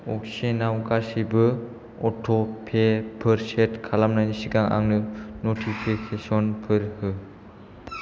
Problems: none marked